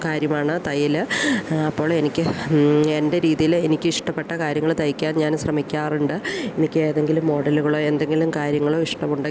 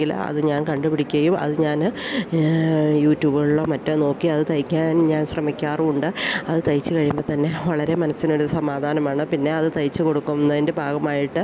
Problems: none marked